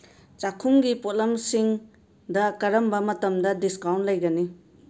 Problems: none marked